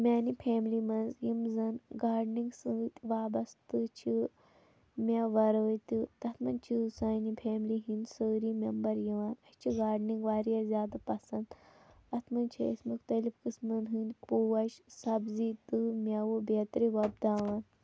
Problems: none marked